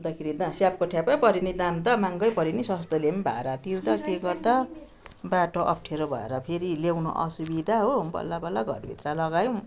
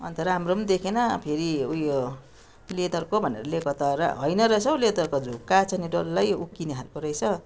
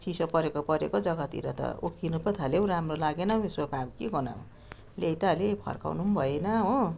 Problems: continuous background conversations